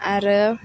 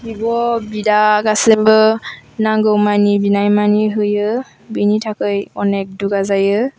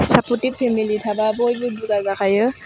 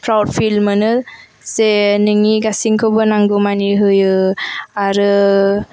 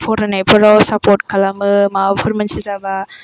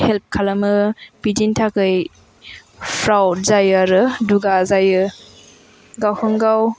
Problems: background sounds at intervals